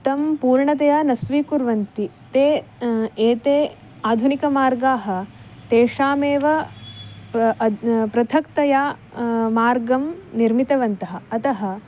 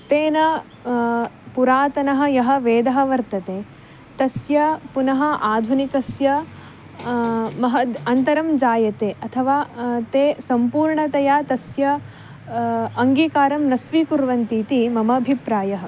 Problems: none marked